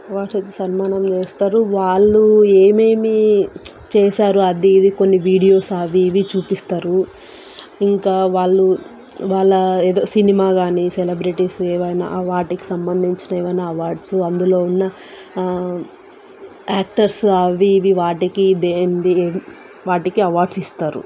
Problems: constant background noise